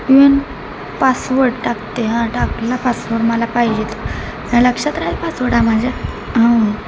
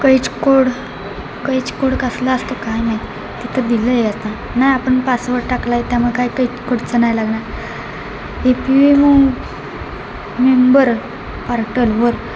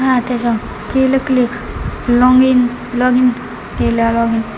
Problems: constant background noise